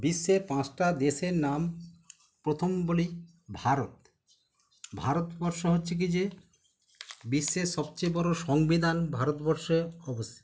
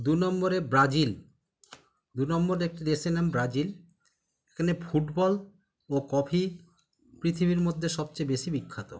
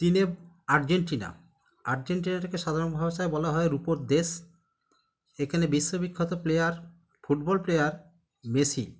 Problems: background conversations at intervals